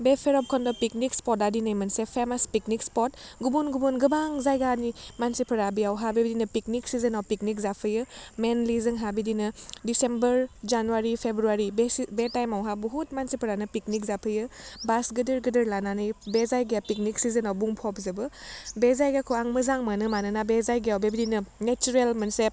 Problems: none marked